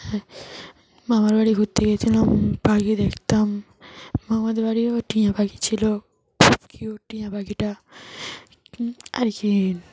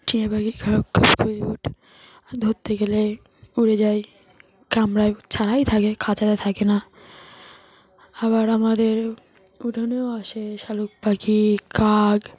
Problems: constant background noise